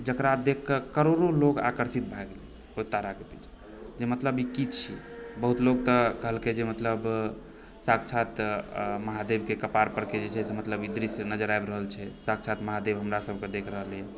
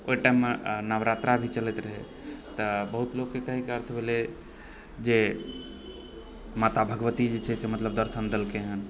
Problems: background sounds at intervals